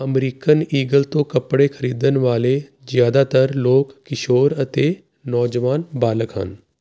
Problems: constant background noise